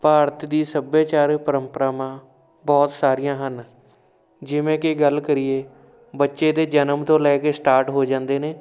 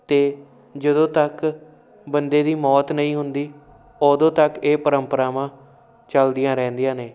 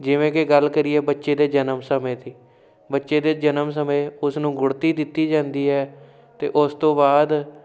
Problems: constant background noise